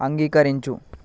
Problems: constant background noise